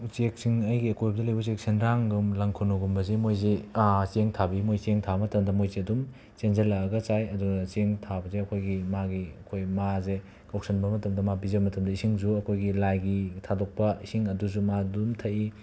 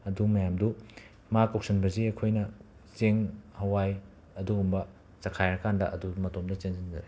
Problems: constant background noise